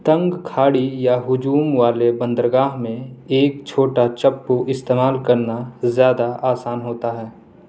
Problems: none marked